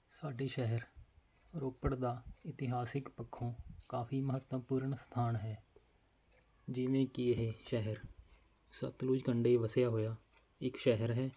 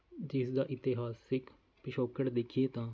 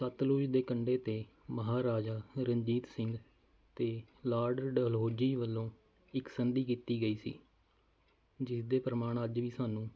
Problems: none marked